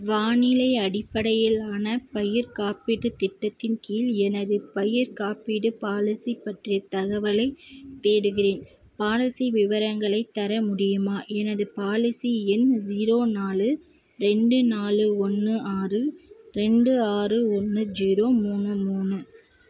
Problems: constant background noise